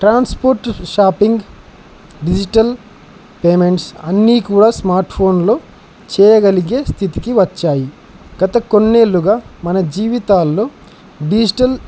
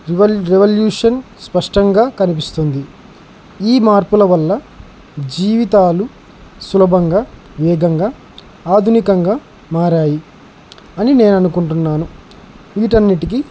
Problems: constant background noise